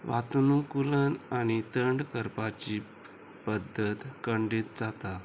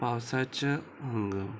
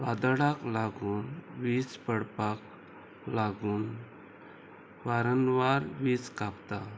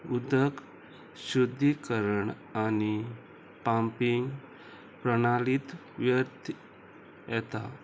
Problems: constant background noise, background conversations at intervals